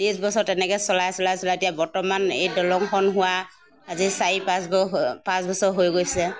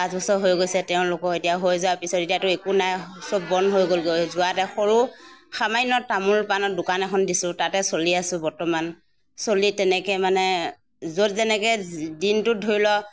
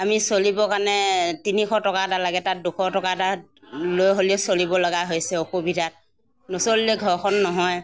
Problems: none marked